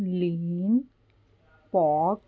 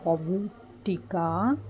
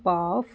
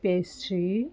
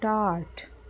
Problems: constant background noise